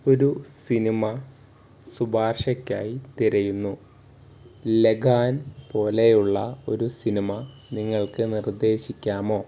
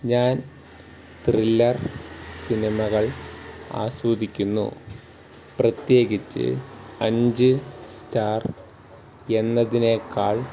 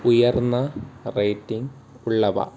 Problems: background sounds at intervals